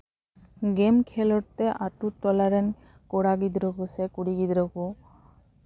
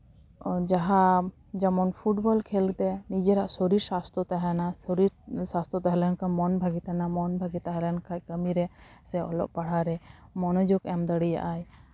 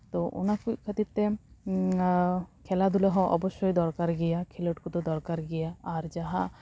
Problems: constant background noise